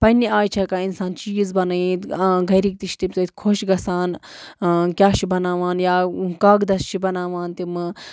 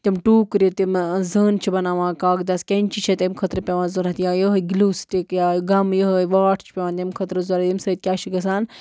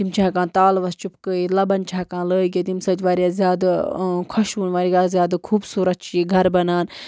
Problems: background sounds at intervals